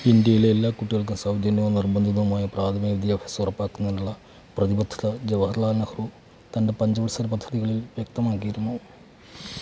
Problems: background sounds at intervals, low volume